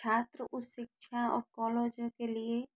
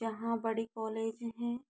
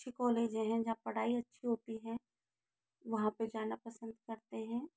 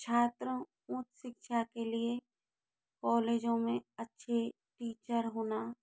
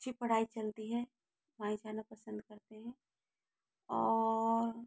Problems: low volume